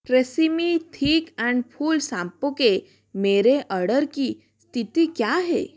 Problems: constant background noise, continuous background conversations